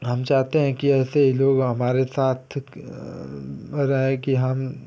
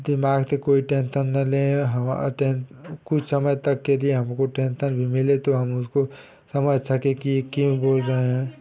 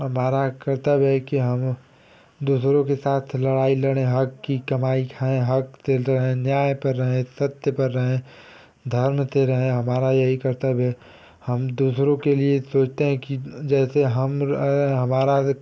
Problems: constant background noise